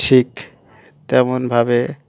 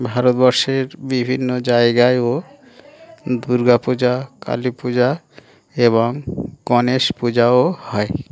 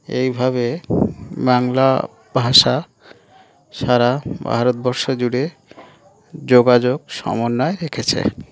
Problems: none marked